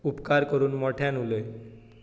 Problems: echo